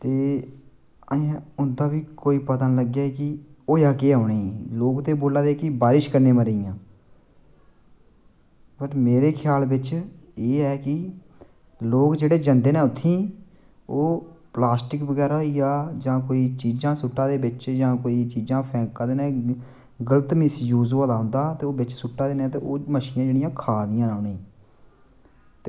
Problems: constant background noise